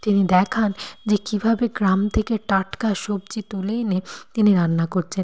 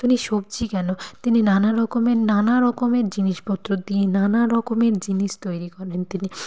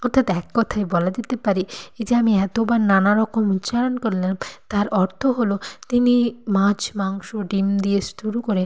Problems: background sounds at intervals